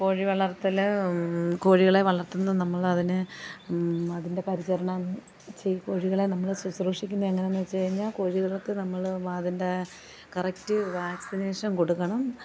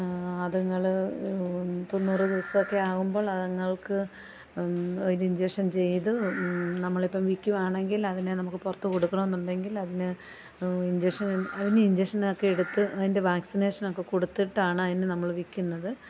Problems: background sounds at intervals, low volume